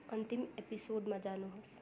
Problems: background sounds at intervals